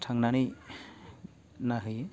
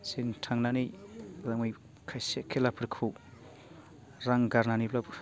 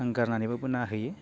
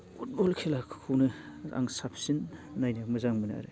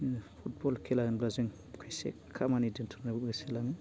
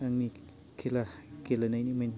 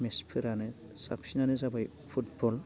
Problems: constant background noise